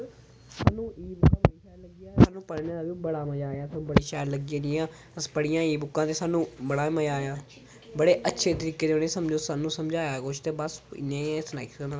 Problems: background sounds at intervals